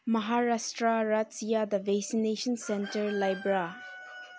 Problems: background sounds at intervals, low volume